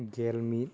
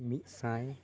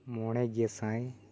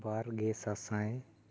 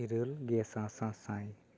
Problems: background conversations at intervals